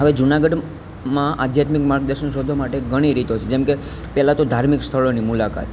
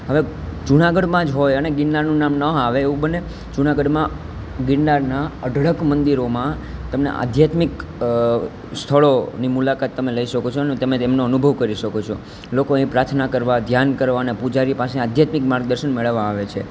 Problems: constant background noise